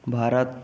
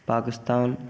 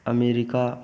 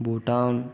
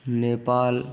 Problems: none marked